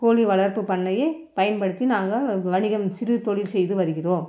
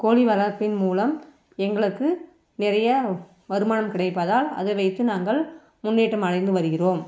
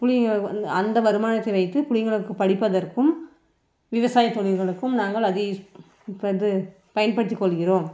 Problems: background sounds at intervals